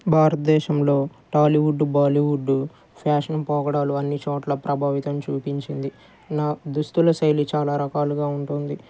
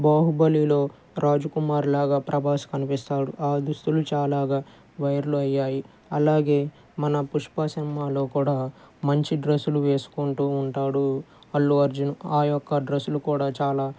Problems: none marked